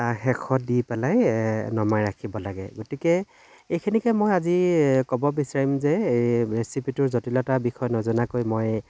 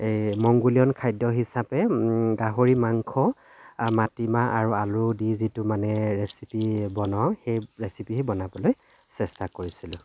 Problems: none marked